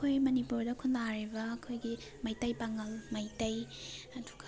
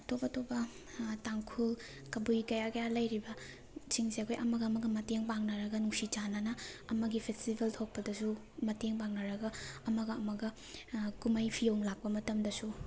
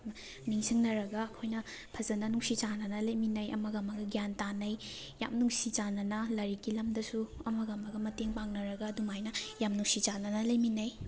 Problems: background sounds at intervals, background conversations at intervals